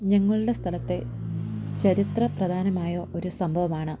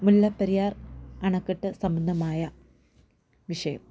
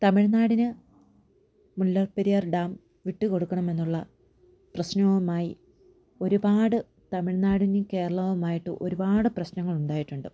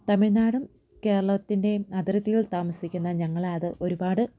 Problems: low volume